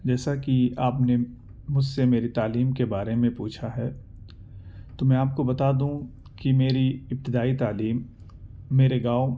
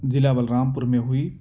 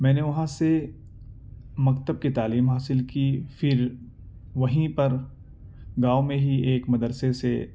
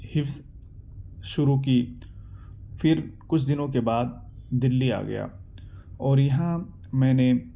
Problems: none marked